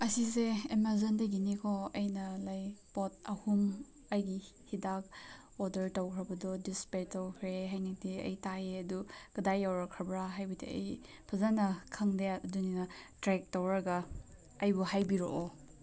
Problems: none marked